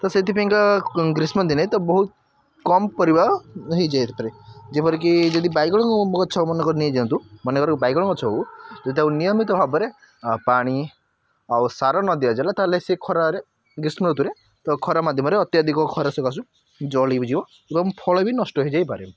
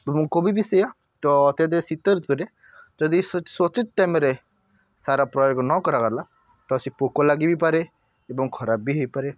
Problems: constant background noise